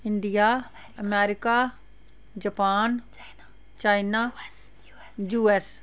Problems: background sounds at intervals, background conversations at intervals